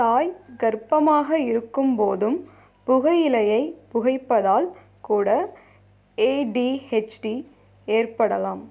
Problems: none marked